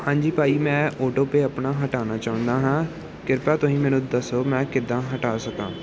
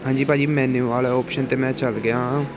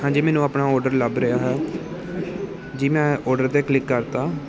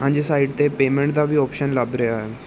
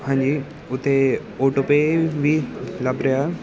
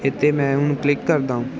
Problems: none marked